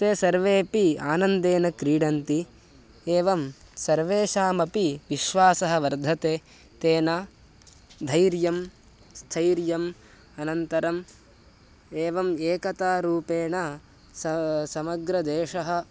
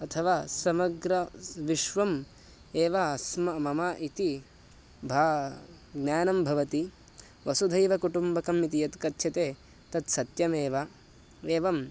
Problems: constant background noise